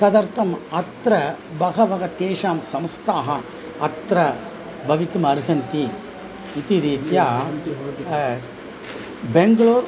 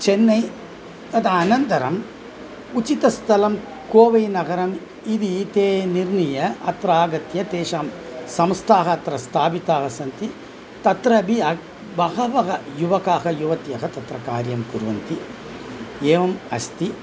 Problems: none marked